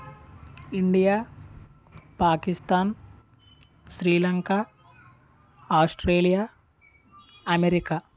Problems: background sounds at intervals, background conversations at intervals